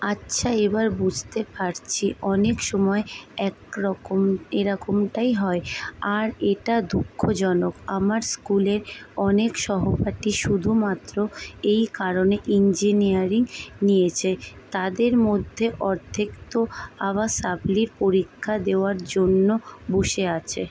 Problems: none marked